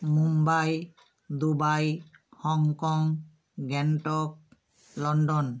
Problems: none marked